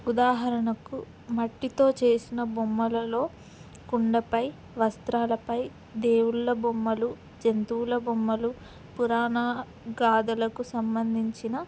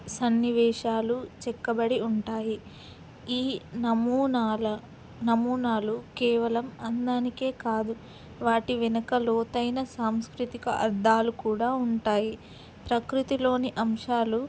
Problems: constant background noise